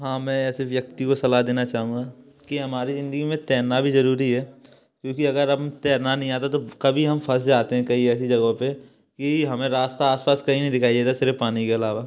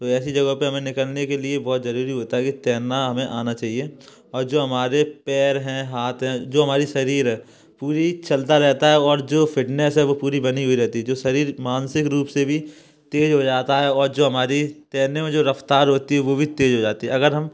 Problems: background sounds at intervals, background conversations at intervals